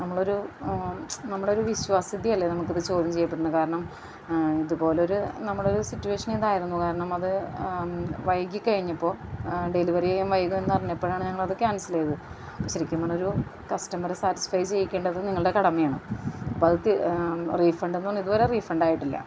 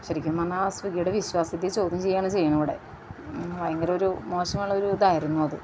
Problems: constant background noise, low volume